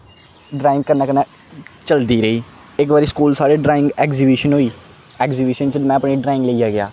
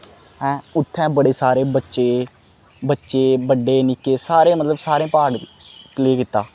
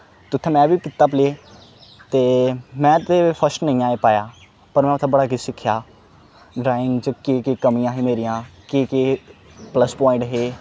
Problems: none marked